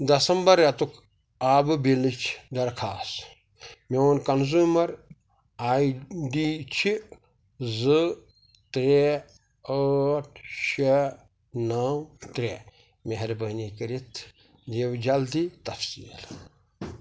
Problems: none marked